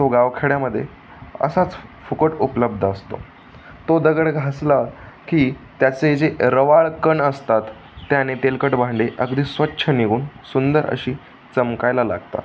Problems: constant background noise, background conversations at intervals